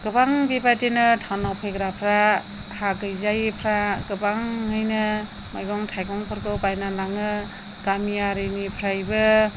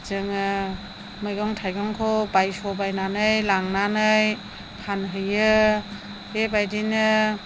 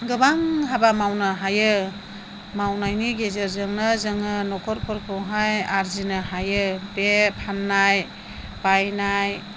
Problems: none marked